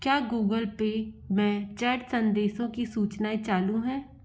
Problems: constant background noise